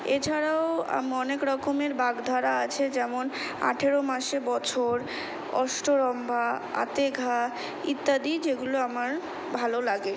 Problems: constant background noise